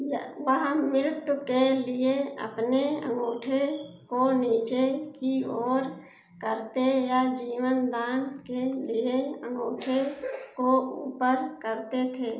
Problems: background sounds at intervals